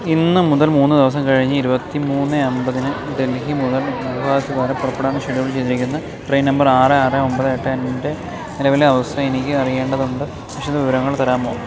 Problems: constant background noise